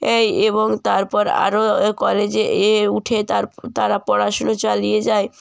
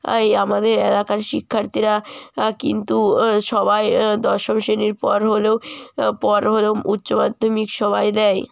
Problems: constant background noise